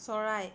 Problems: none marked